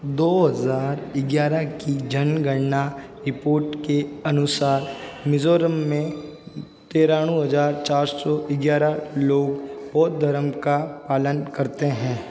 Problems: background sounds at intervals